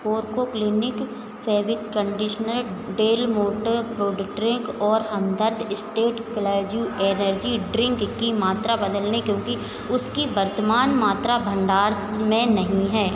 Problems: constant background noise, echo